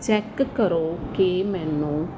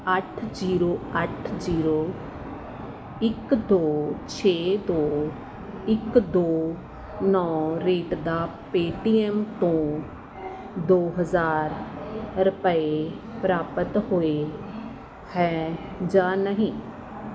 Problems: constant background noise